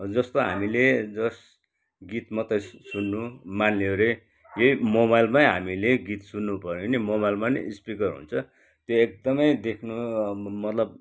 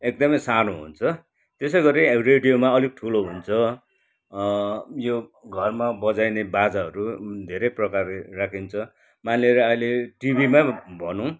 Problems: none marked